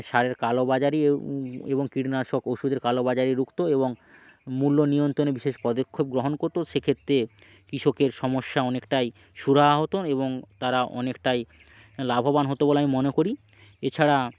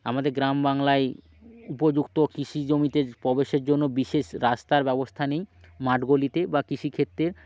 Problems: constant background noise